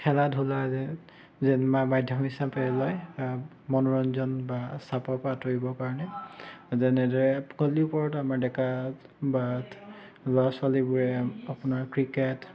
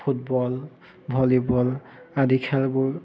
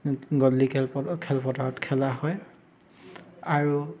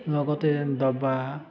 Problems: background sounds at intervals, continuous background conversations